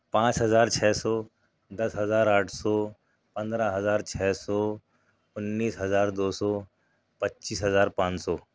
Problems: none marked